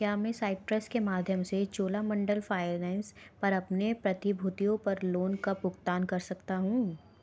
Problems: background sounds at intervals